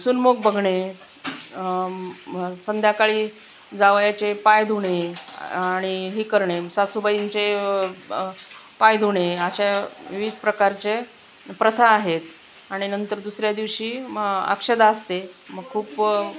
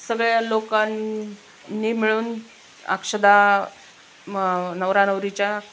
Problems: constant background noise